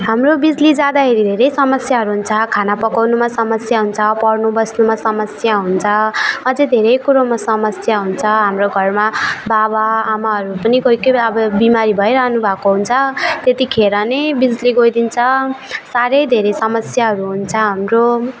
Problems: none marked